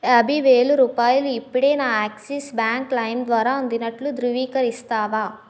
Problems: none marked